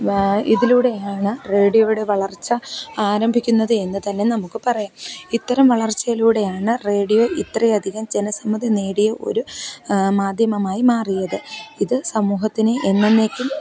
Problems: background conversations at intervals